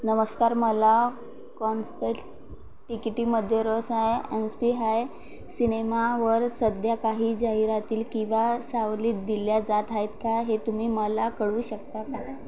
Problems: constant background noise, background conversations at intervals